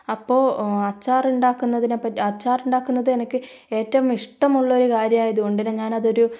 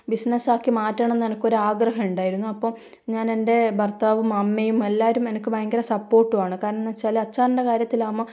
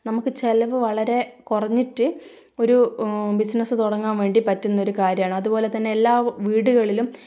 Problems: low volume